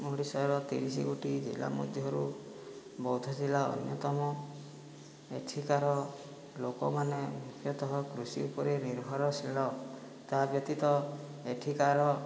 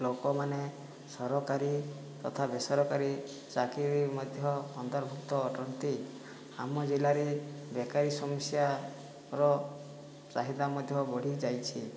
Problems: low volume